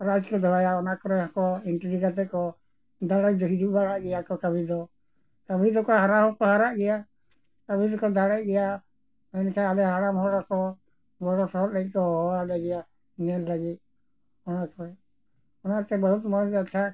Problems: background sounds at intervals